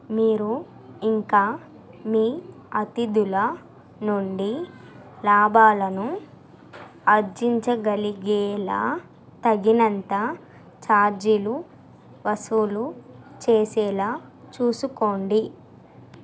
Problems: constant background noise